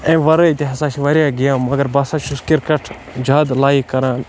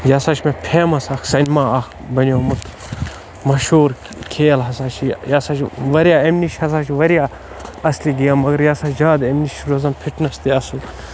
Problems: constant background noise